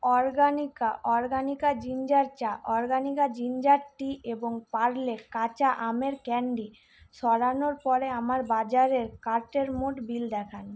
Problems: background sounds at intervals